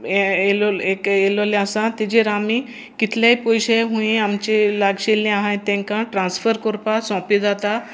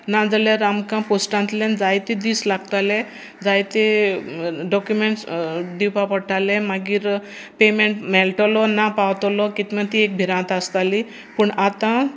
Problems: constant background noise